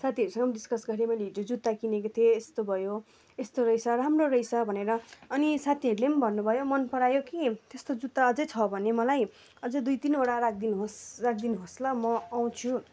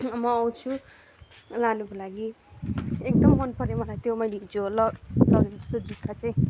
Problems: constant background noise